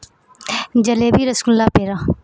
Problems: none marked